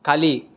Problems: none marked